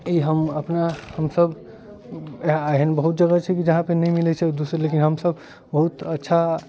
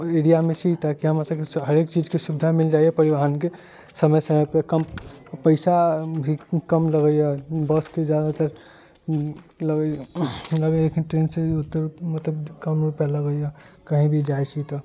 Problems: constant background noise